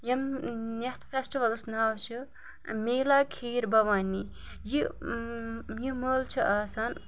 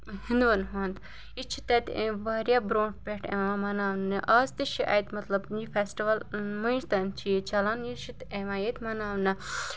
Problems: background sounds at intervals